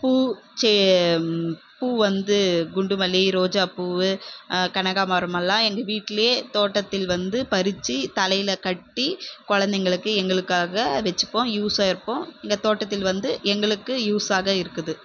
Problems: none marked